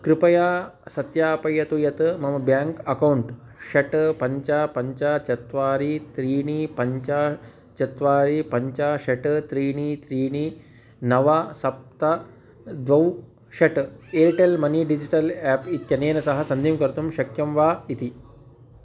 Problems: background sounds at intervals